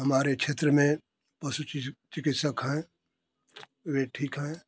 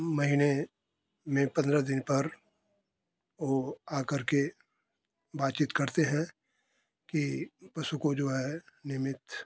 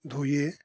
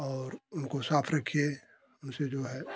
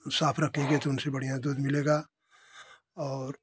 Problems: constant background noise